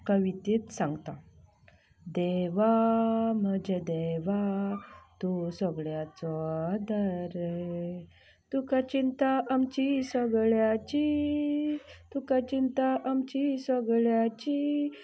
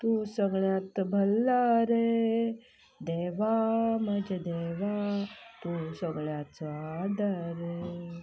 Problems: background sounds at intervals, low volume